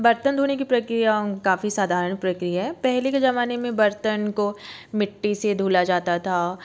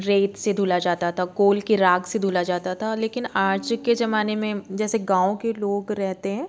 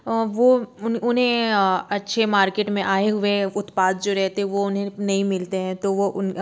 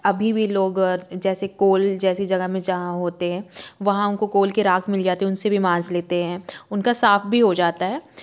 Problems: background sounds at intervals